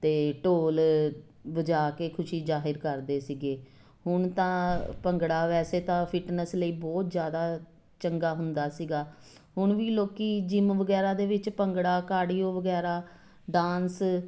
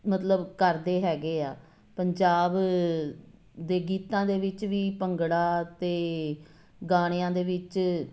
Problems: constant background noise